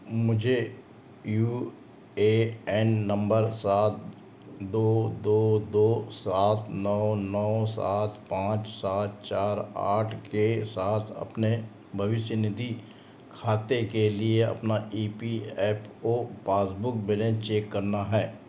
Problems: constant background noise, background conversations at intervals